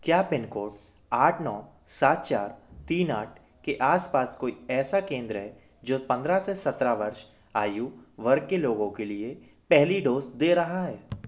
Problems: constant background noise